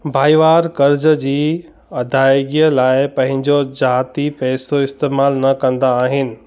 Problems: constant background noise